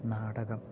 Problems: low volume